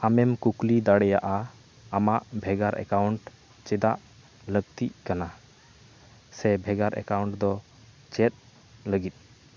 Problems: none marked